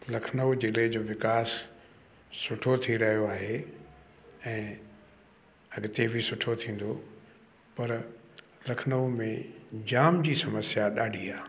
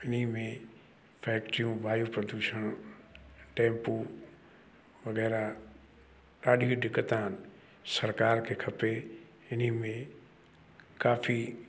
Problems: constant background noise